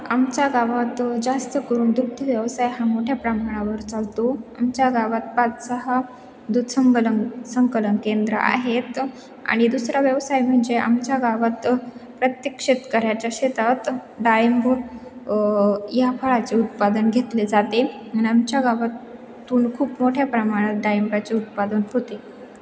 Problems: none marked